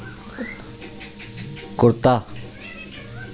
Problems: constant background noise